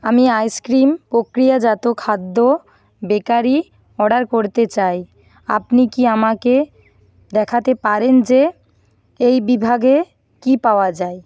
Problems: background sounds at intervals